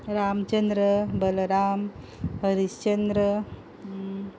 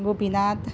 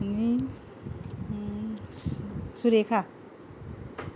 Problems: background sounds at intervals